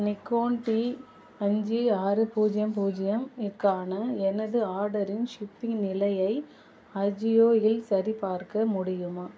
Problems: constant background noise